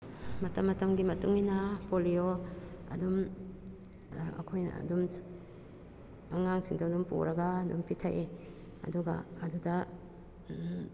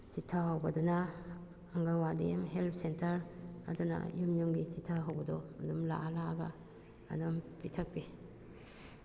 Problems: background sounds at intervals